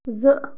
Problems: background sounds at intervals